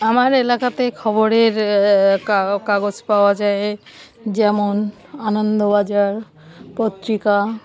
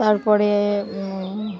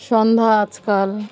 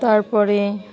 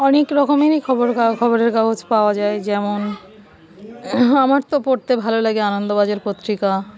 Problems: background sounds at intervals